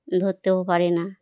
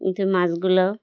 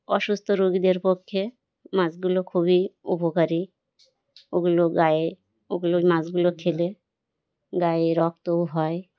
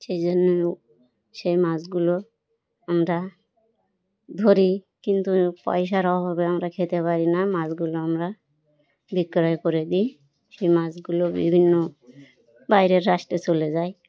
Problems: none marked